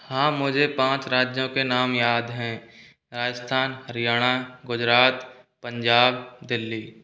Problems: background sounds at intervals